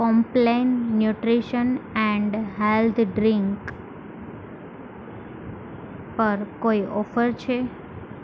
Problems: constant background noise